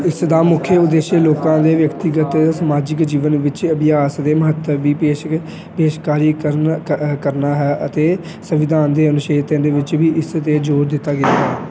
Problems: background sounds at intervals, background conversations at intervals